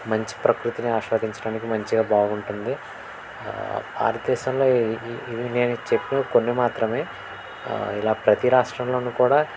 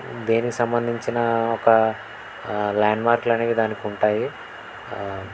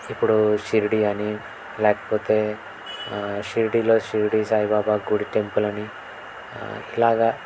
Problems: constant background noise